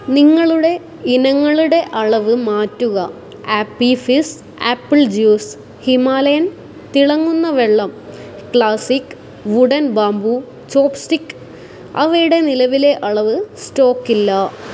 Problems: constant background noise